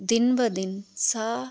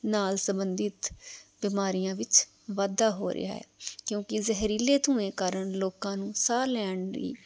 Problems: background sounds at intervals